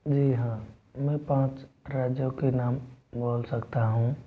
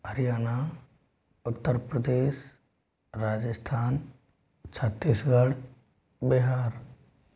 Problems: none marked